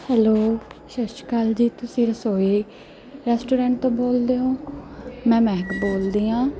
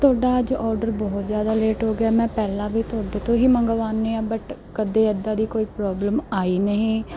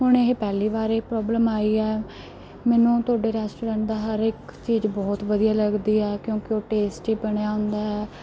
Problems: constant background noise